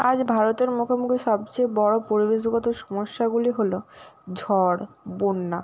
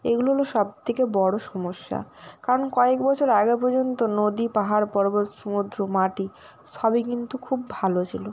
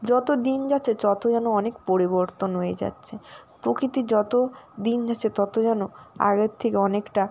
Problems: none marked